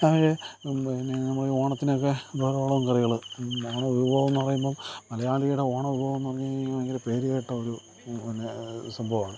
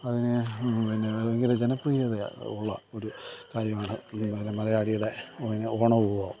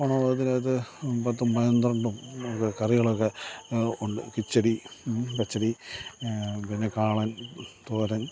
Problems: background sounds at intervals, low volume